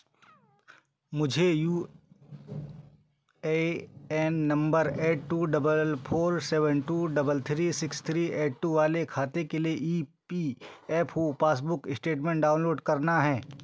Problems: background sounds at intervals